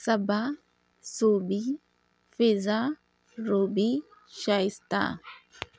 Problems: none marked